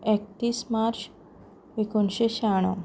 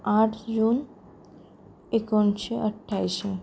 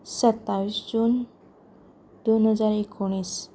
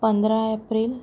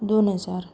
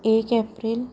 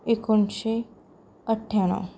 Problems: low volume